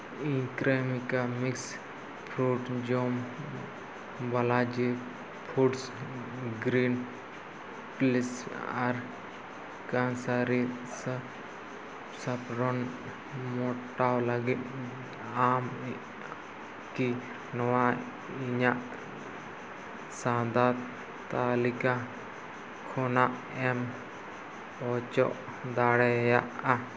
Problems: constant background noise